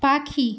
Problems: constant background noise